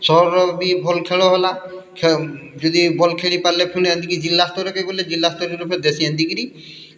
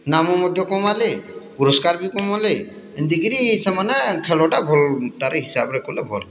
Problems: none marked